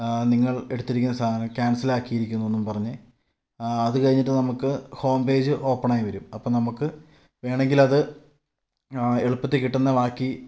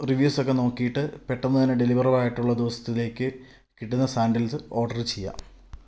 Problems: low volume